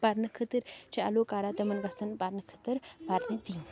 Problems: background sounds at intervals, background conversations at intervals